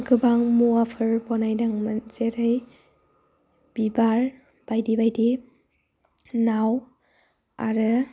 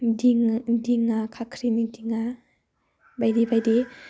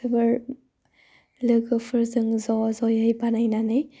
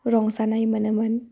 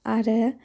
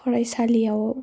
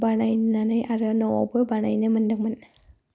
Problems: low volume